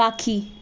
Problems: constant background noise